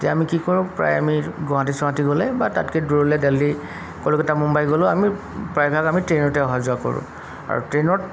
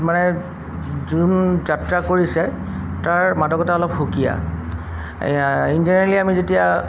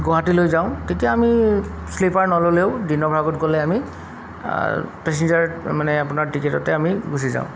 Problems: background sounds at intervals